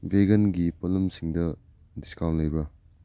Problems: low volume